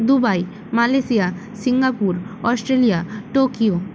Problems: constant background noise